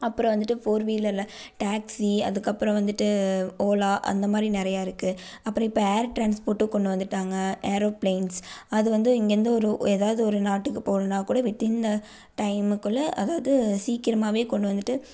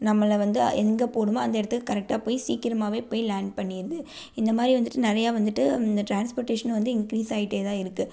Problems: none marked